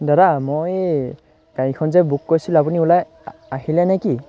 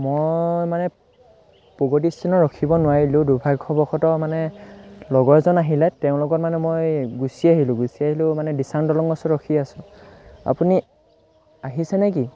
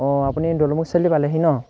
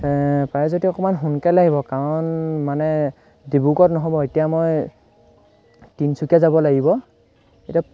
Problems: constant background noise